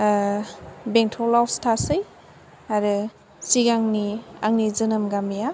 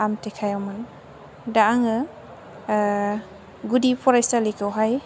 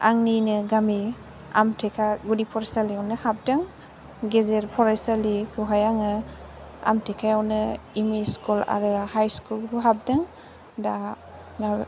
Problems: background sounds at intervals